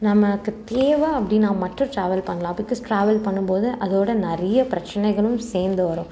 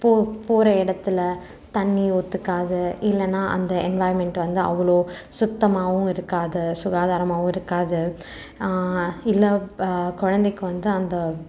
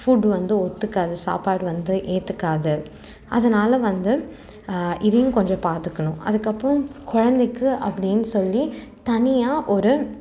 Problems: constant background noise